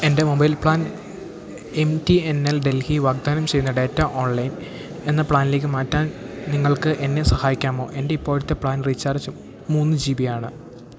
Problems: low volume